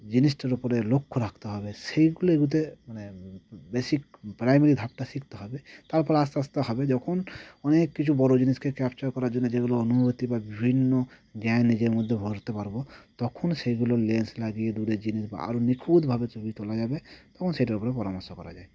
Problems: constant background noise